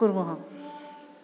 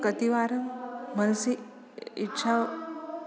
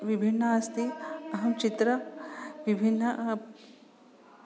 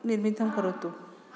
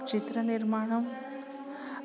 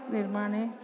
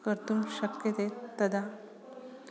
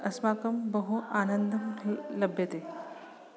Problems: background sounds at intervals, background conversations at intervals